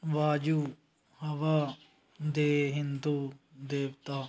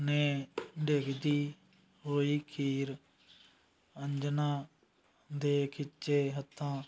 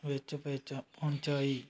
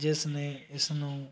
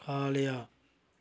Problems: constant background noise